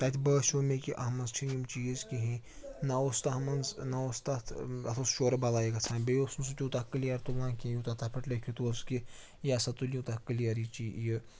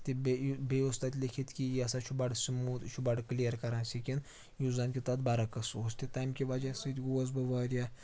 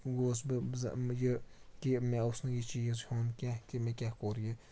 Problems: constant background noise, background conversations at intervals